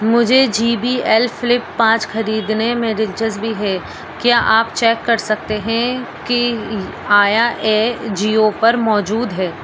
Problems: constant background noise